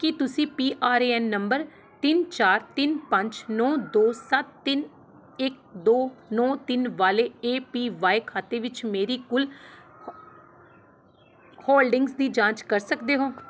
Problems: constant background noise